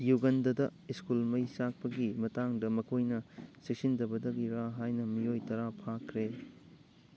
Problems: background sounds at intervals